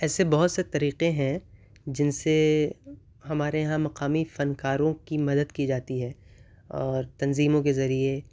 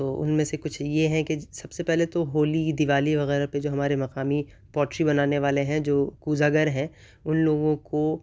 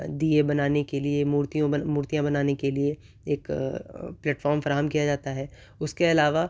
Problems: none marked